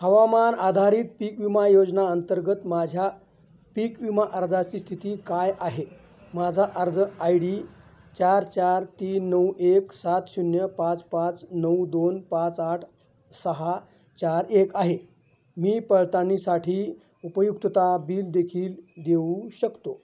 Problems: constant background noise, background conversations at intervals